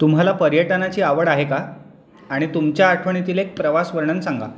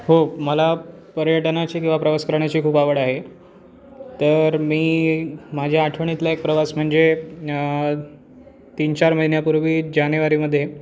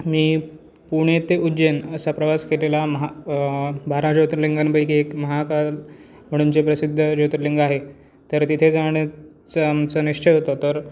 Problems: constant background noise, continuous background conversations